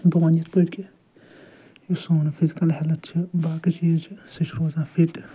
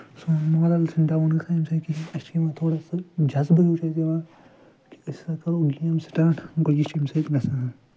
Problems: background sounds at intervals, low volume